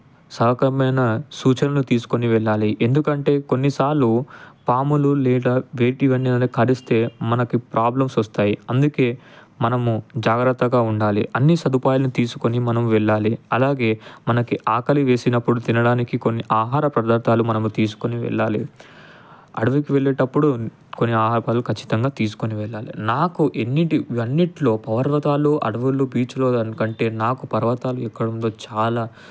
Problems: none marked